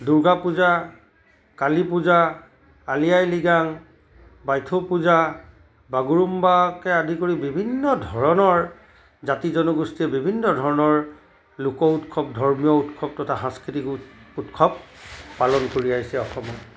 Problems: constant background noise